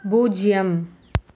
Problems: none marked